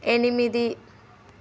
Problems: none marked